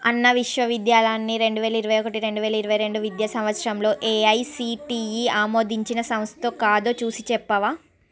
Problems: background conversations at intervals